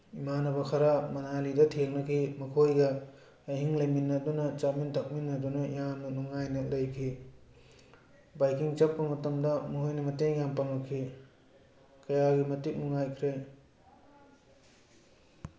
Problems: background conversations at intervals